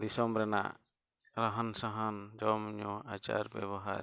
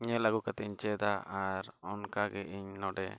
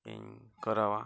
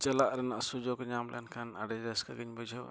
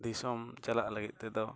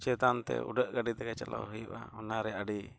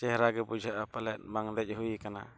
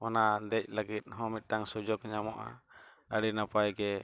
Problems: none marked